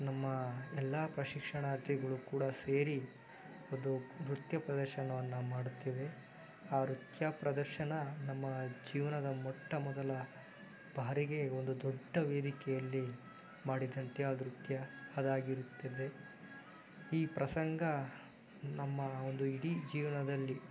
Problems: background sounds at intervals